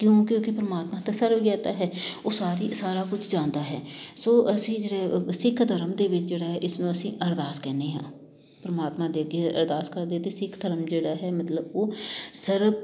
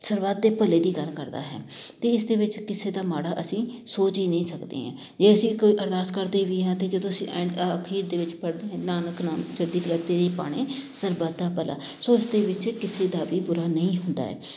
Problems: constant background noise